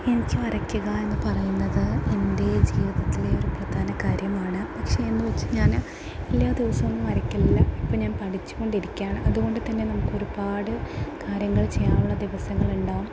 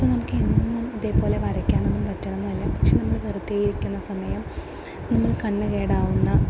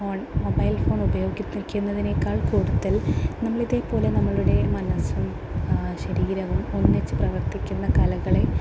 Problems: constant background noise